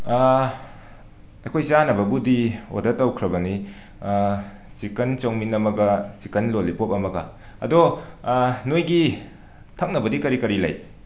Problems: none marked